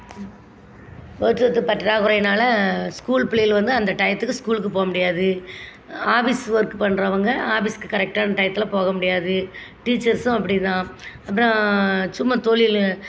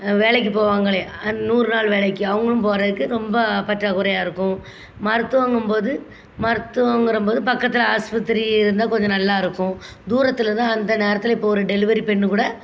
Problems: constant background noise